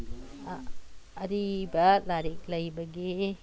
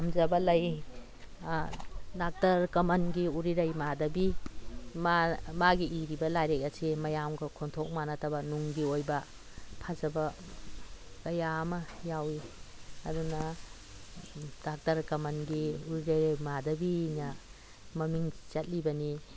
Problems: constant background noise